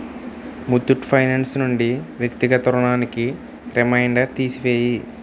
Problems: constant background noise